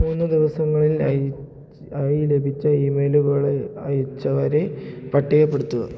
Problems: low volume